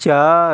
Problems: none marked